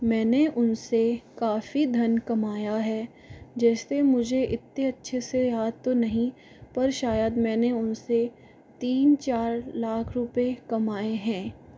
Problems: background sounds at intervals